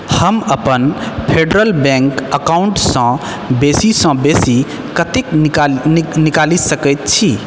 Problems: echo